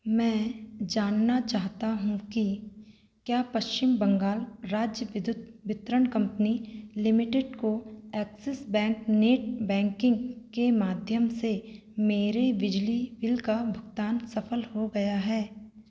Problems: constant background noise